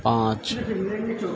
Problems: constant background noise